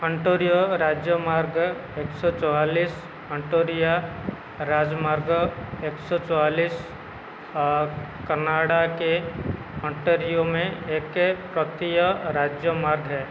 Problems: constant background noise